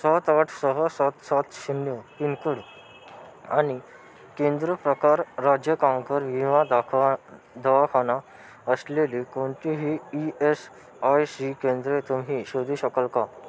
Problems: constant background noise